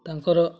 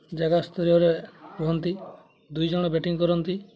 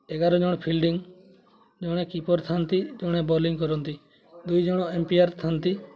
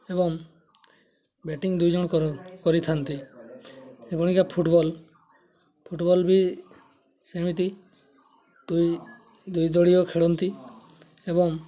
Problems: constant background noise, continuous background conversations